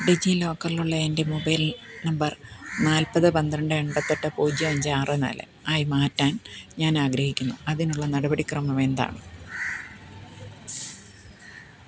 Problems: low volume